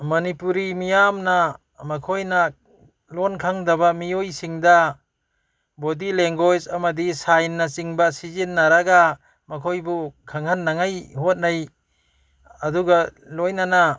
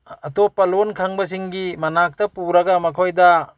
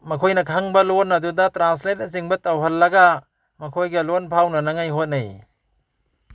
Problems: background conversations at intervals